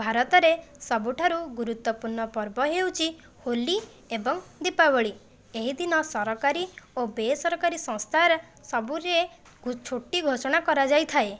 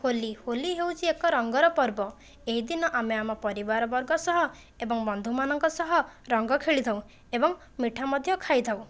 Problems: none marked